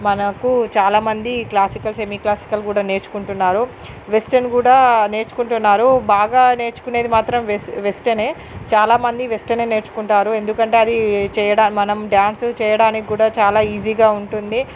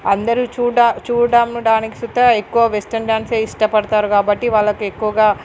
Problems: none marked